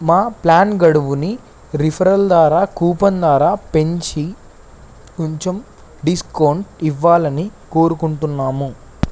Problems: constant background noise